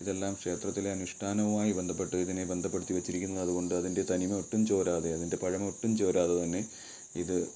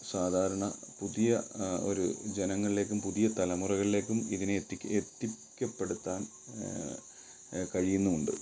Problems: background sounds at intervals